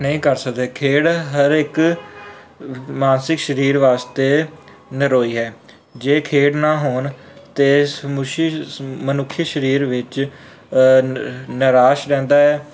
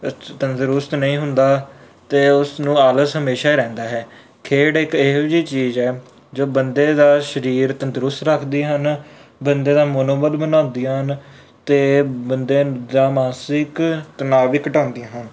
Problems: background sounds at intervals